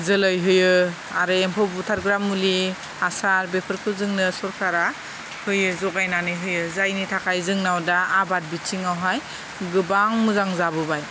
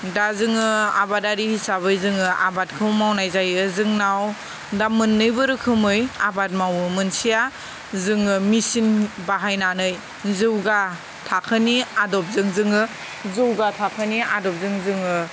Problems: constant background noise